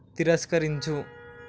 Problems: constant background noise